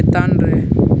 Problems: constant background noise